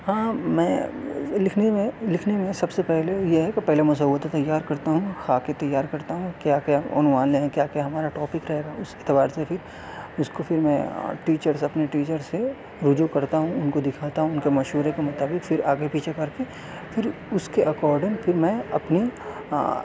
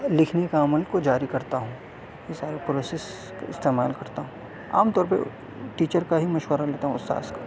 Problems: constant background noise, background conversations at intervals